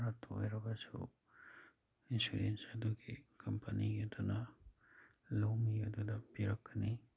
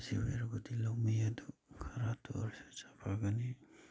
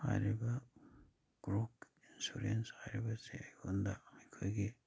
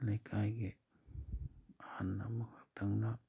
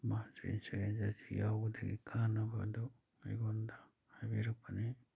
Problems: none marked